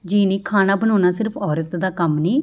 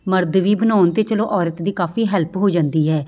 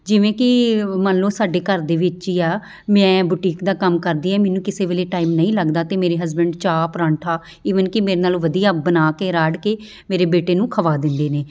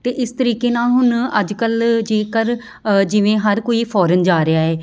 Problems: constant background noise